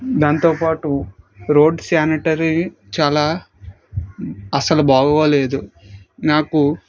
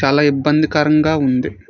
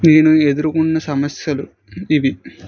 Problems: background conversations at intervals